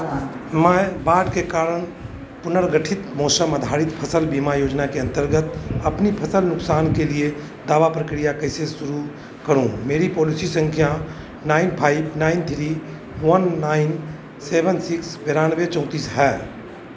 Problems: constant background noise